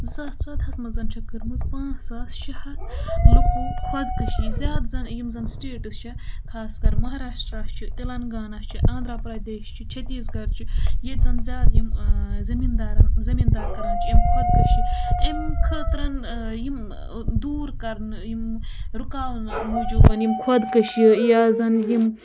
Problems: none marked